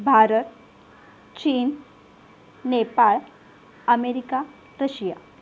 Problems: none marked